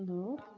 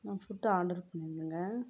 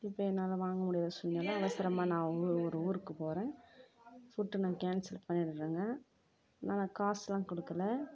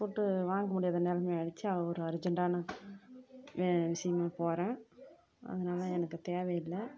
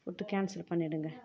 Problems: none marked